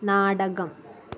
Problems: constant background noise